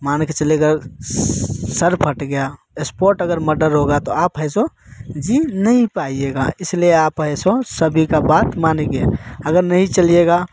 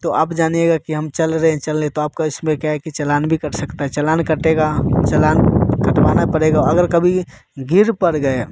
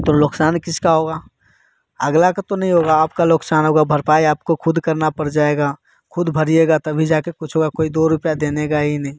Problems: constant background noise